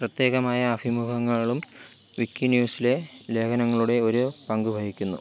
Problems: constant background noise